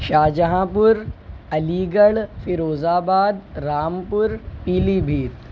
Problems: constant background noise